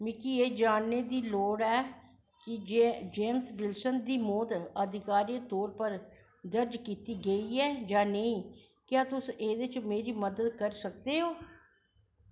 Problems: echo